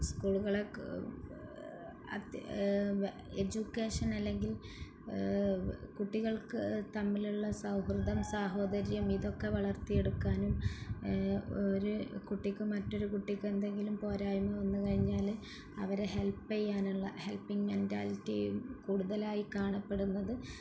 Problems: background sounds at intervals